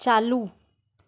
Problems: none marked